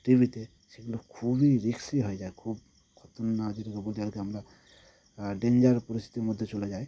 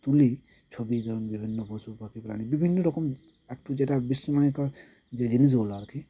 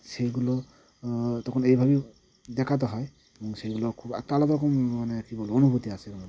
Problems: constant background noise